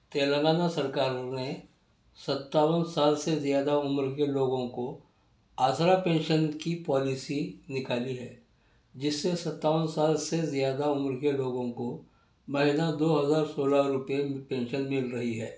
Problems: none marked